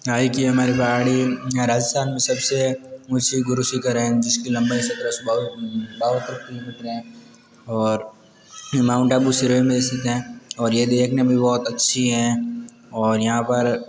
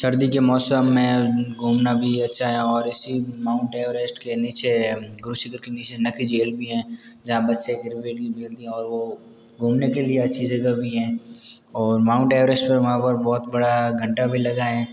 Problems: constant background noise, continuous background conversations